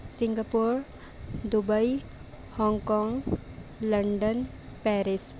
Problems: constant background noise